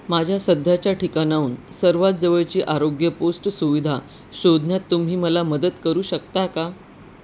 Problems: none marked